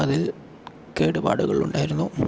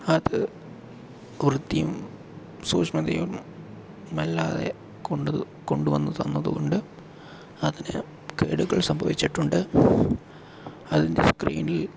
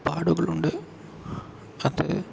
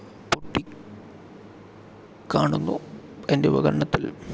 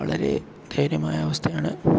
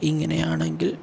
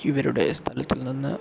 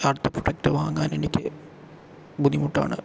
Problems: low volume